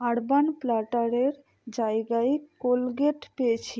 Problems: none marked